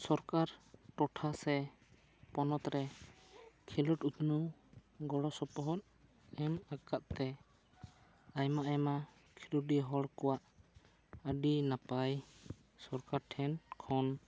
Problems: none marked